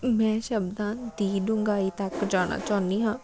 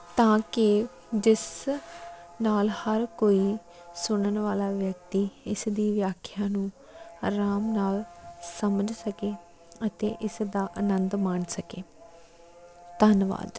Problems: none marked